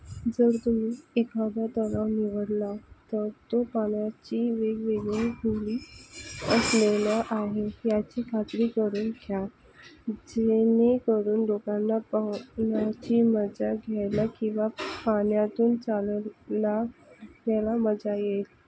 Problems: background sounds at intervals, low volume